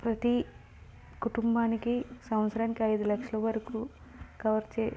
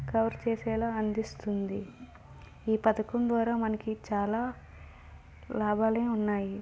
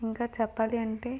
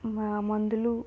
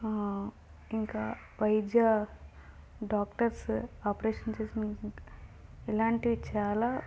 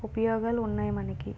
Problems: none marked